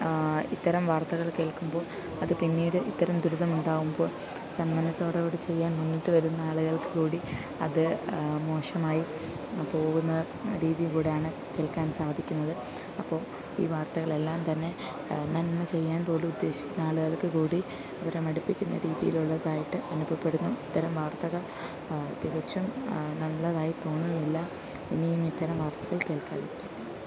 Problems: none marked